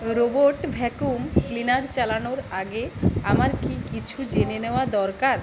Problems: constant background noise